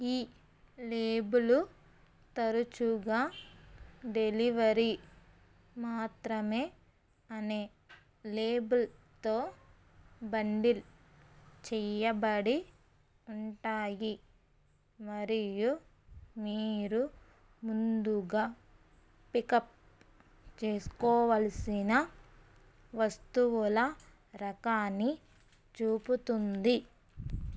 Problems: constant background noise